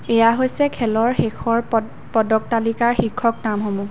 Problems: constant background noise